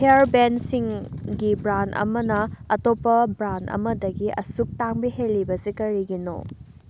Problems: constant background noise